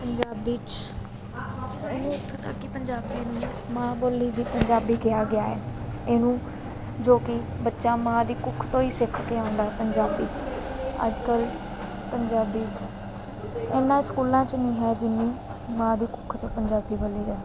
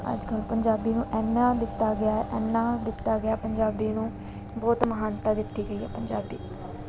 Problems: constant background noise